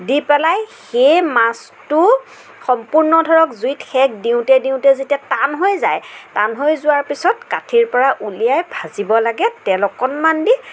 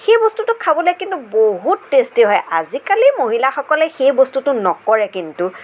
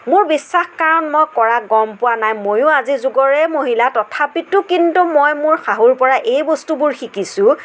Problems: none marked